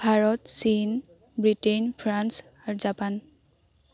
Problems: none marked